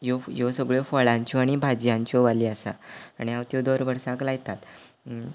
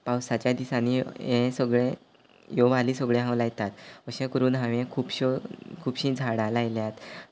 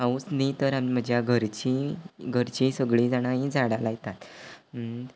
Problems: none marked